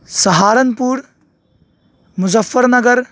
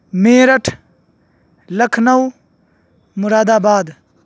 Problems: background sounds at intervals